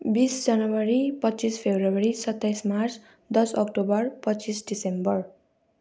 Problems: none marked